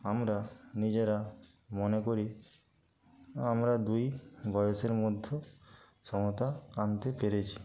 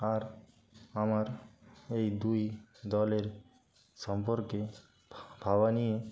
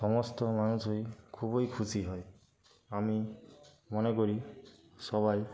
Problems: constant background noise, continuous background conversations